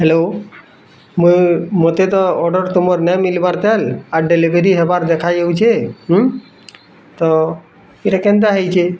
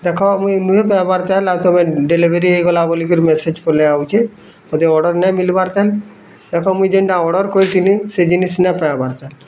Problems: constant background noise, continuous background conversations